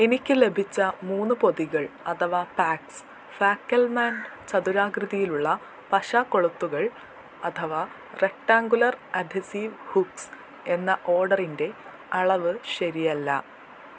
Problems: constant background noise, low volume